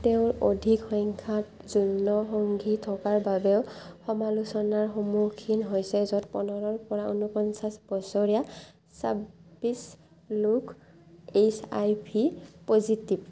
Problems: constant background noise